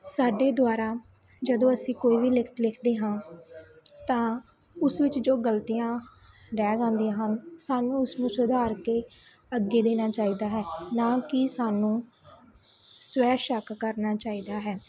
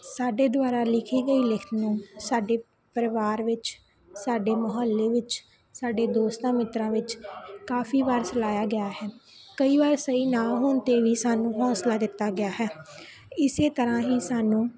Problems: continuous background conversations